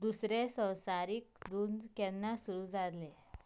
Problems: background sounds at intervals